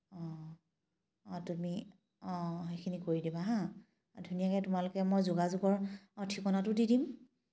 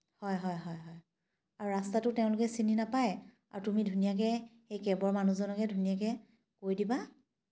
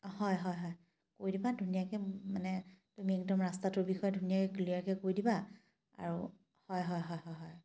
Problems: background sounds at intervals